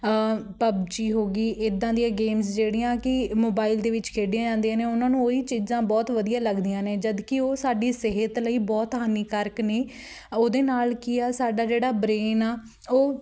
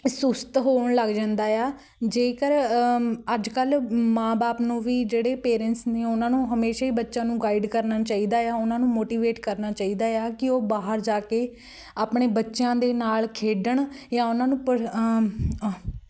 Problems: background sounds at intervals